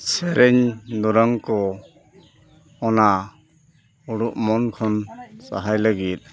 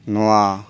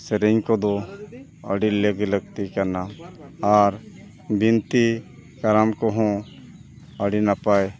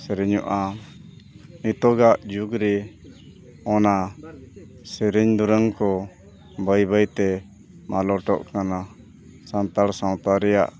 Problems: constant background noise, background conversations at intervals